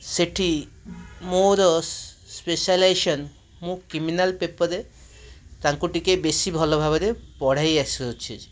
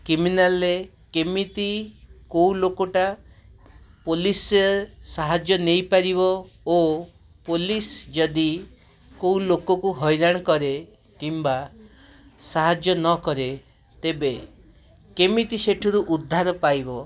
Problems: none marked